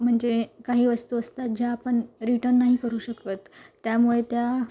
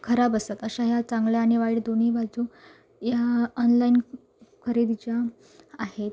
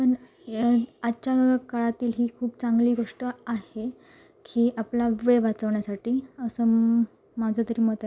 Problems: none marked